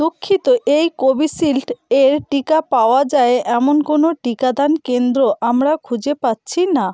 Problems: background sounds at intervals